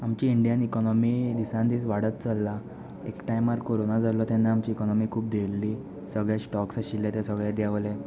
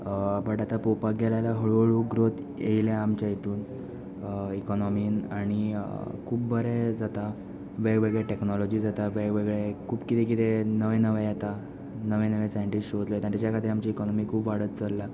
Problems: none marked